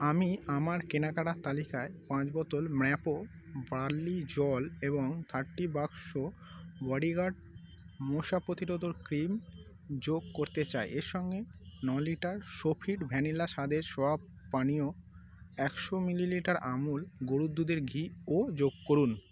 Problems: constant background noise